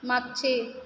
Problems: background sounds at intervals